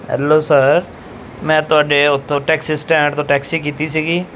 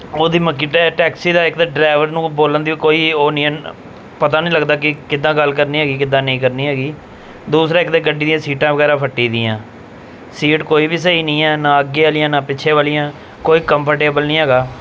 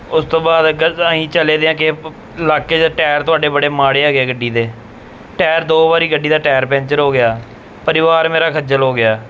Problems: background sounds at intervals